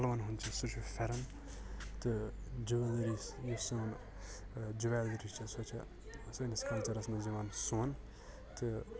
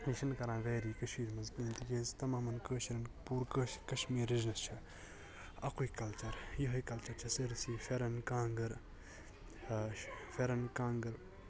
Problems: constant background noise, background conversations at intervals, low volume